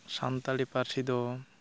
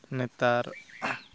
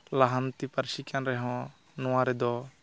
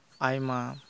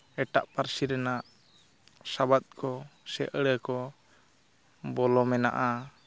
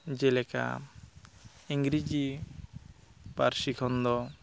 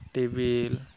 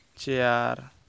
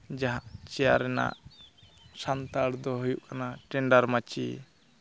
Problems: constant background noise